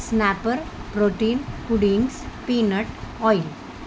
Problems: constant background noise